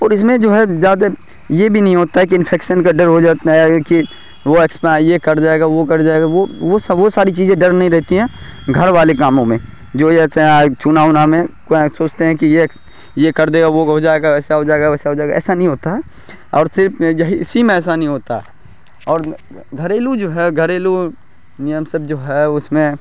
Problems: none marked